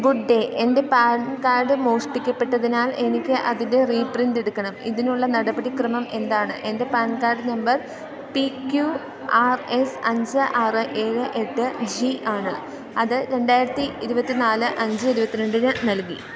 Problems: none marked